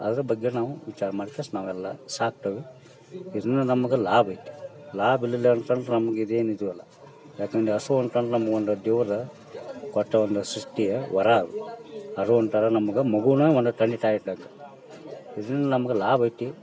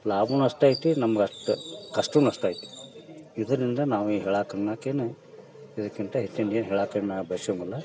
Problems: background sounds at intervals, background conversations at intervals